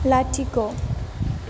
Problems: none marked